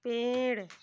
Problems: constant background noise